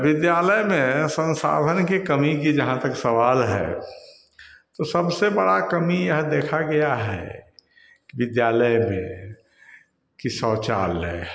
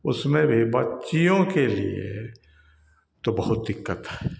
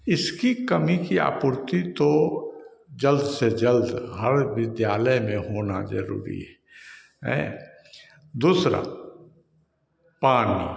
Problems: none marked